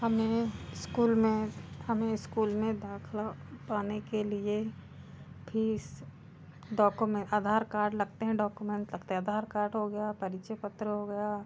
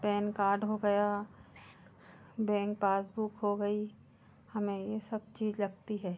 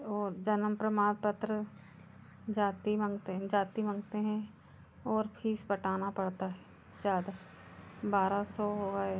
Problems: constant background noise, background conversations at intervals